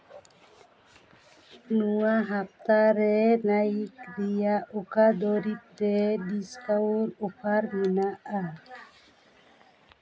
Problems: continuous background conversations